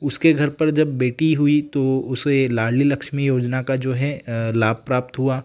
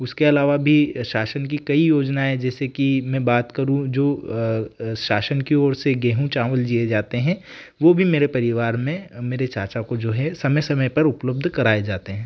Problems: background sounds at intervals